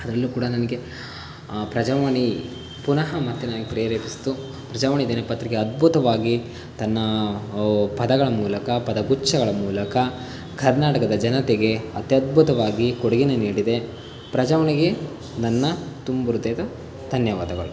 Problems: constant background noise